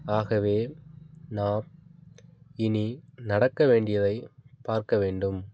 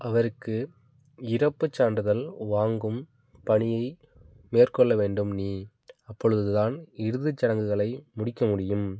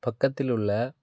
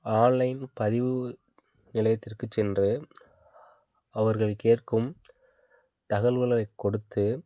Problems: constant background noise